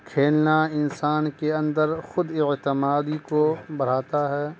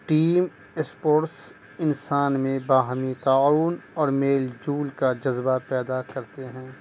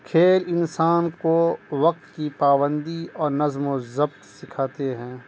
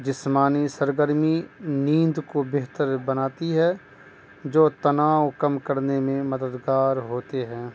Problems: constant background noise